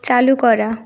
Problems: constant background noise